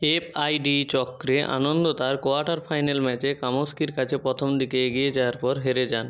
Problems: background sounds at intervals